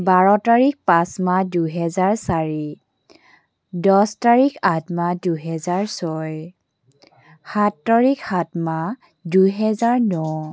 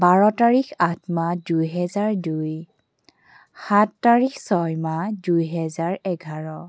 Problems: background sounds at intervals